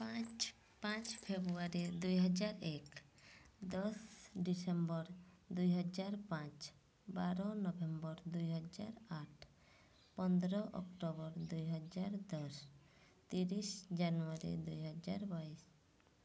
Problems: none marked